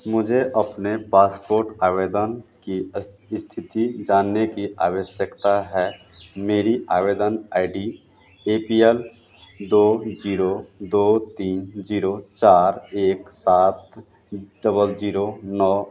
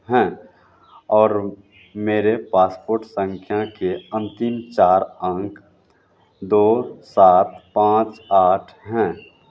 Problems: constant background noise